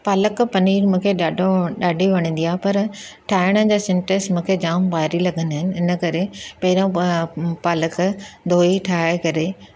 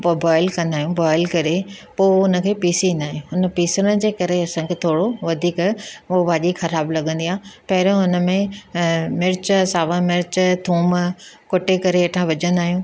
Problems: none marked